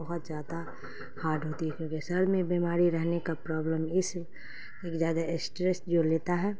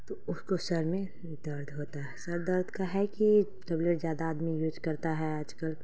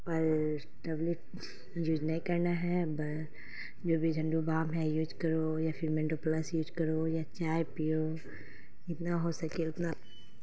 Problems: constant background noise